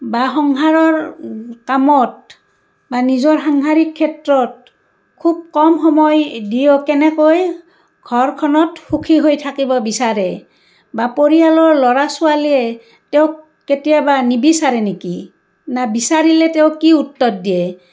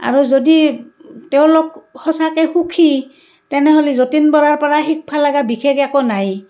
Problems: none marked